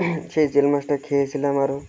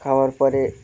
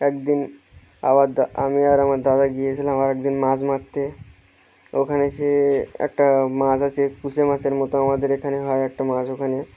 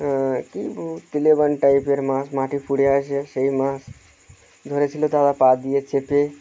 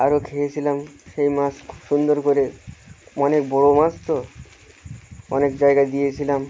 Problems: none marked